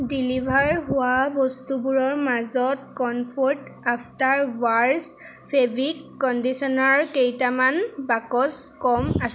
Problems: constant background noise